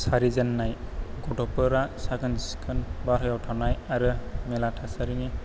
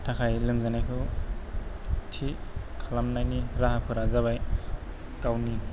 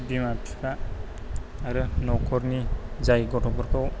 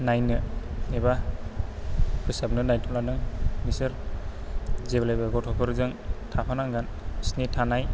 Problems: low volume